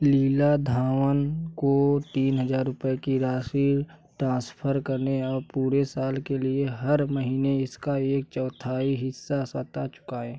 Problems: none marked